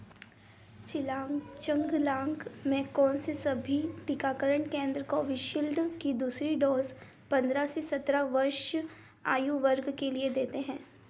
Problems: background sounds at intervals